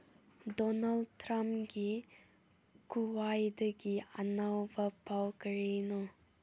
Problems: none marked